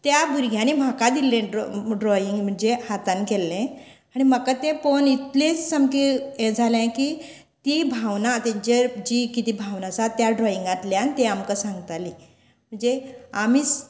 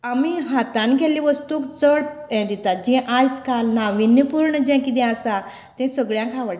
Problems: constant background noise